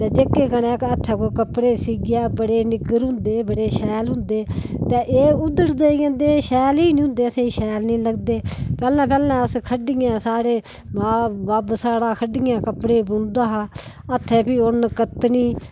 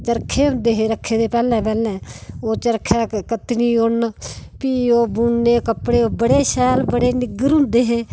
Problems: background sounds at intervals